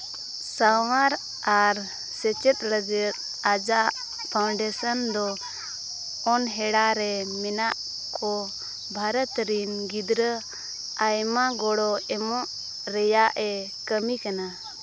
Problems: constant background noise, background conversations at intervals